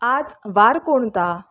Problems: constant background noise